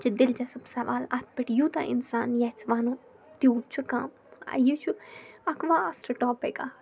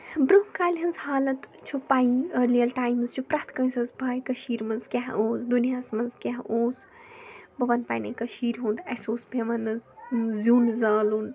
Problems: background sounds at intervals, background conversations at intervals